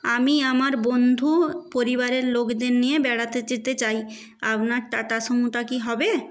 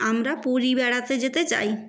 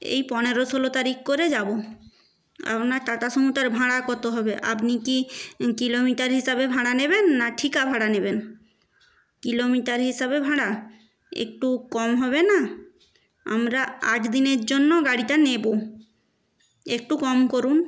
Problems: background sounds at intervals